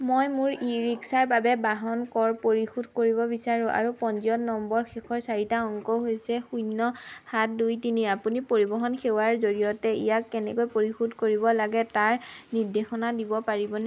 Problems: background sounds at intervals